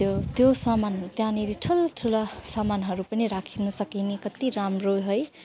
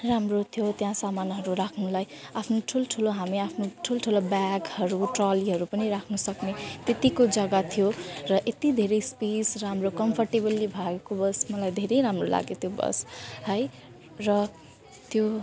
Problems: constant background noise